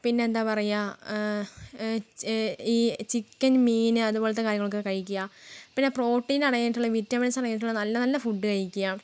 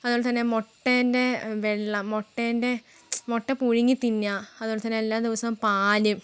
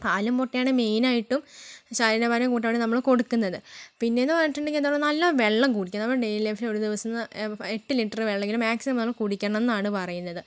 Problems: background sounds at intervals